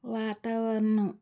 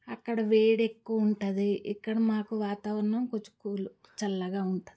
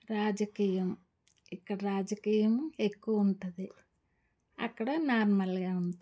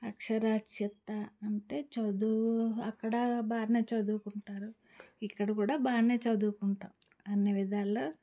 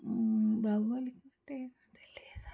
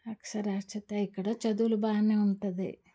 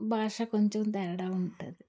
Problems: background conversations at intervals